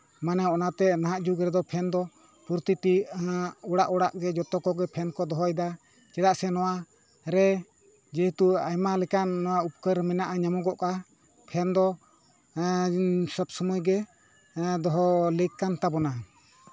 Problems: continuous background conversations